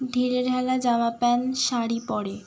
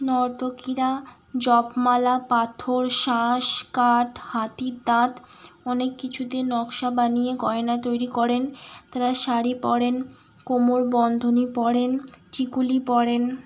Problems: constant background noise